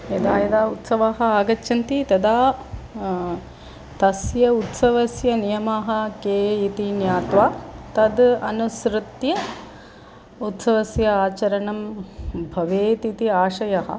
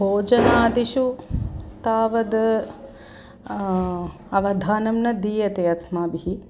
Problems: background sounds at intervals